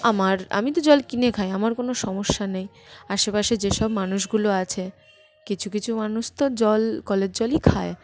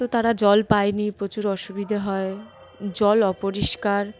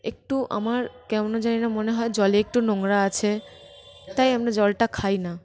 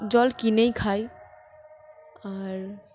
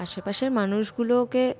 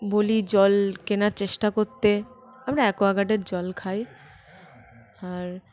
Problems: constant background noise, continuous background conversations